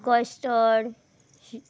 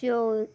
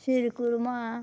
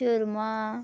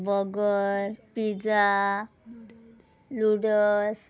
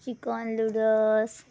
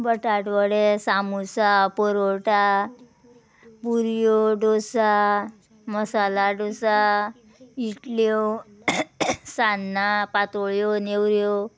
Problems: background sounds at intervals